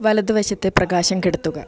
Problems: low volume